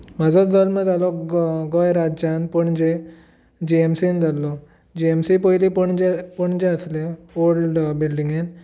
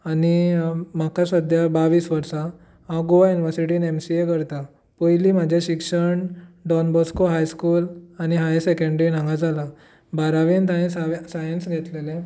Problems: none marked